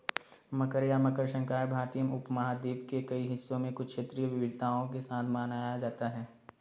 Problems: background sounds at intervals